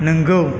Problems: none marked